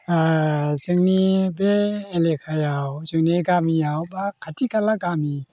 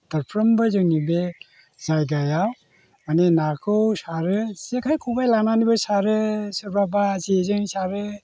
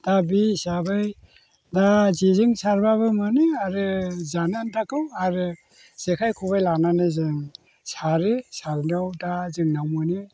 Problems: none marked